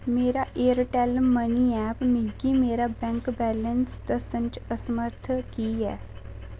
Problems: constant background noise